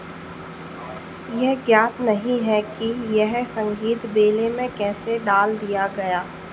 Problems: constant background noise